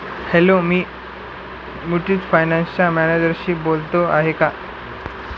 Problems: constant background noise